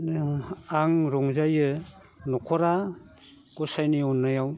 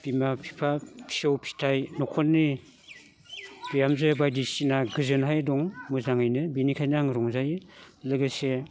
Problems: constant background noise